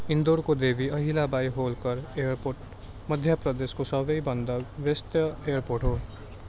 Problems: constant background noise